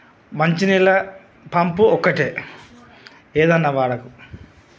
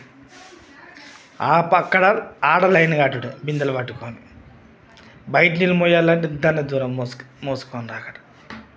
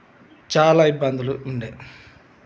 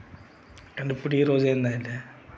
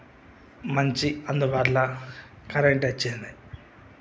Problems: constant background noise, background conversations at intervals